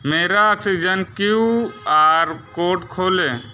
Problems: none marked